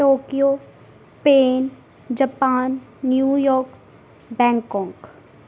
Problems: background sounds at intervals